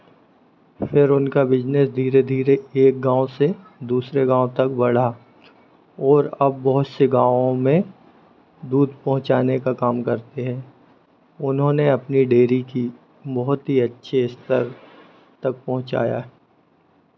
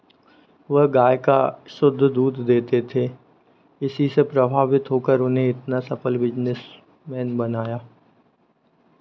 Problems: constant background noise